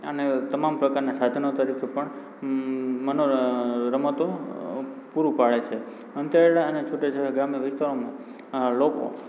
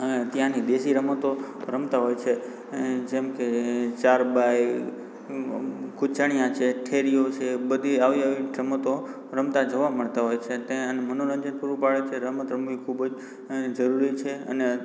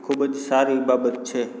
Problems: background sounds at intervals